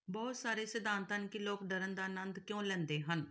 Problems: background sounds at intervals